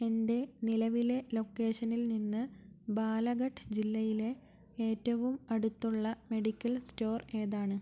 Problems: low volume